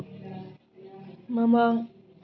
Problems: low volume